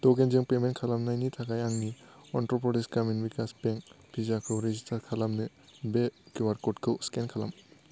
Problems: low volume